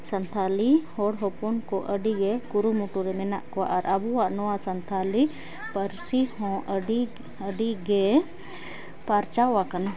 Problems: background sounds at intervals